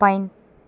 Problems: constant background noise